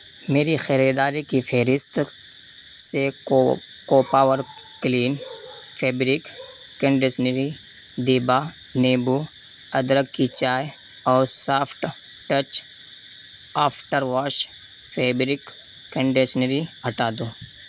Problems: constant background noise